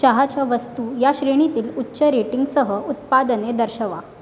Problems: none marked